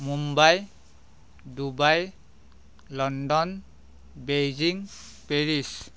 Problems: background sounds at intervals